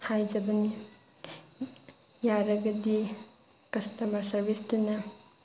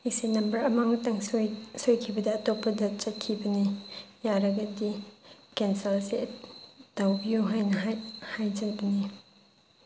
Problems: constant background noise